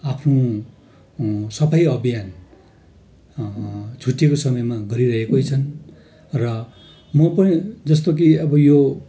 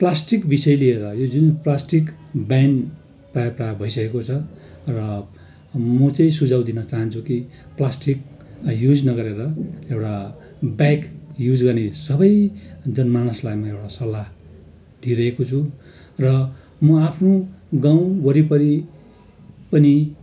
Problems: constant background noise